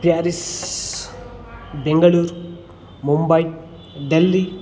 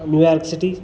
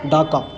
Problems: background conversations at intervals